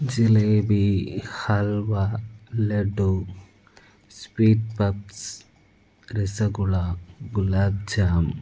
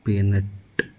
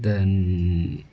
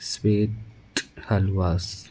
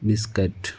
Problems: low volume